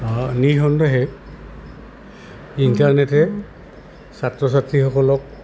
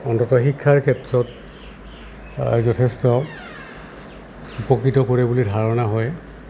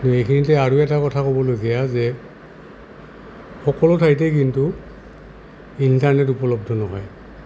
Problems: constant background noise